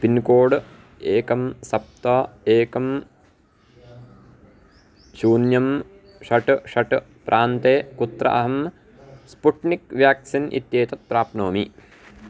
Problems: background sounds at intervals